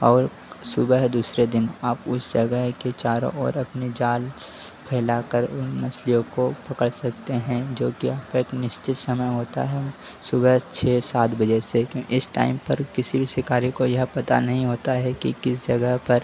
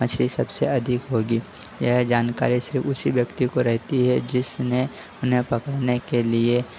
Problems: constant background noise